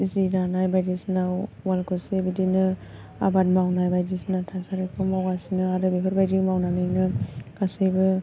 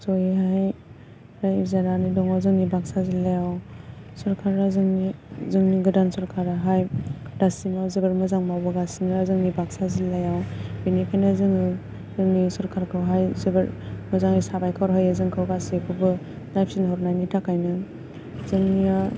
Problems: none marked